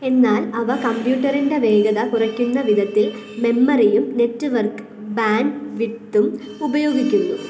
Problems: background sounds at intervals